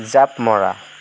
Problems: constant background noise